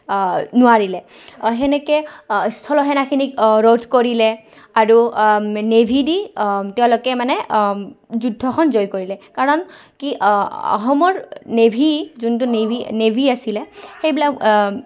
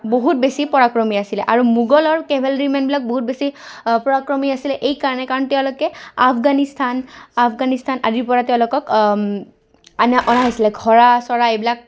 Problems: background sounds at intervals, background conversations at intervals